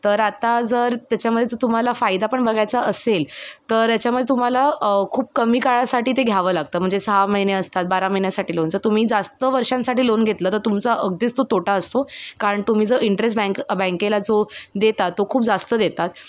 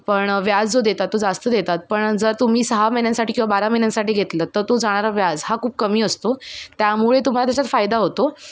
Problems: background sounds at intervals